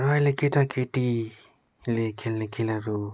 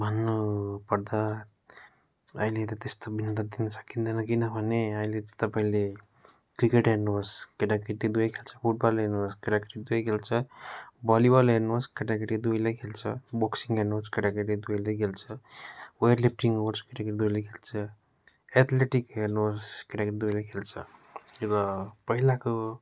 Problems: none marked